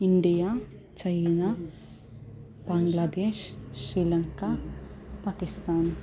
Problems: background sounds at intervals